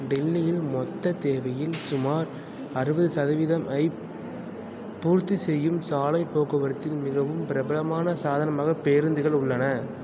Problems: none marked